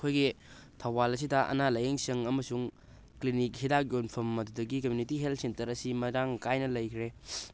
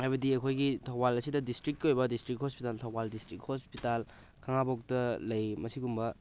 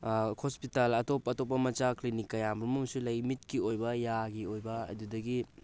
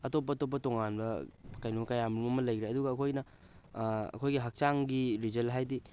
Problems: constant background noise